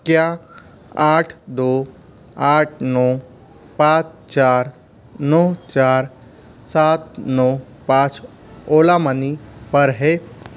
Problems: constant background noise